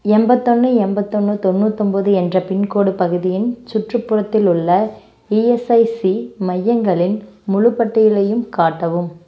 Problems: none marked